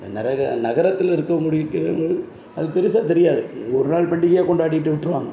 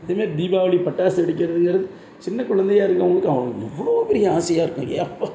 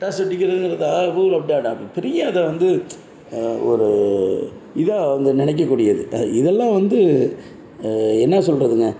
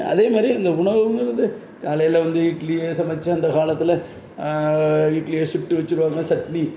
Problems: none marked